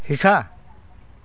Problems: background sounds at intervals